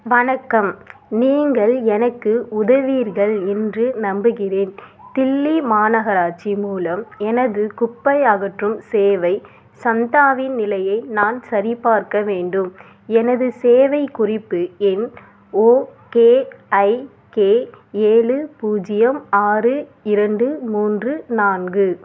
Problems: background sounds at intervals